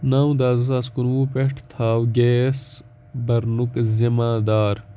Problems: background sounds at intervals